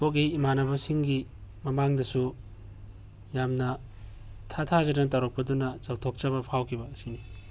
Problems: none marked